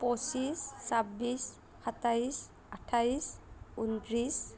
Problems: none marked